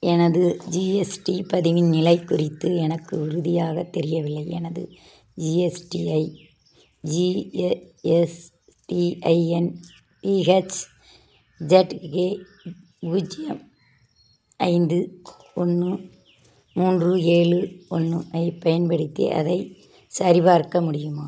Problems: none marked